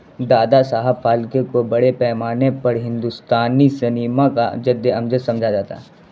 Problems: constant background noise